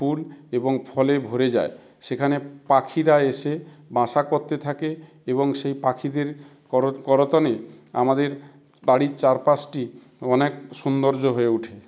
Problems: background sounds at intervals